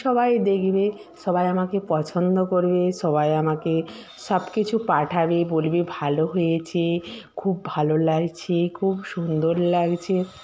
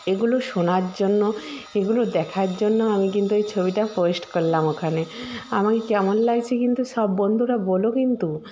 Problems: none marked